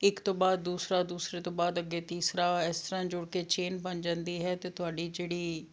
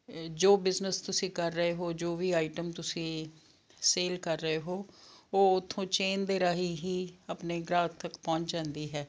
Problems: none marked